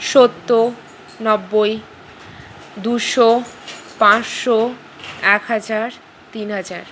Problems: constant background noise